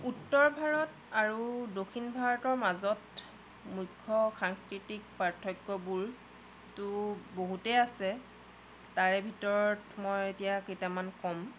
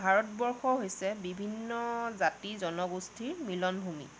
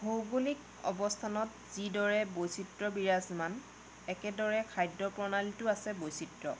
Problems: background sounds at intervals, low volume